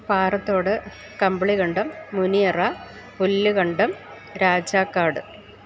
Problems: constant background noise